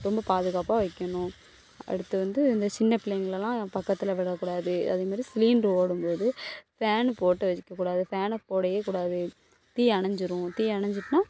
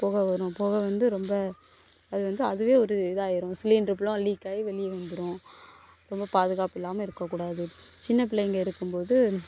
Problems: background sounds at intervals